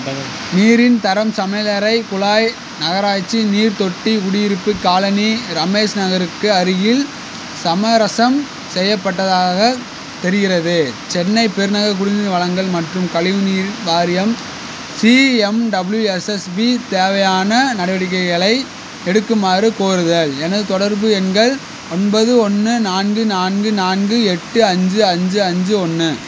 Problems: constant background noise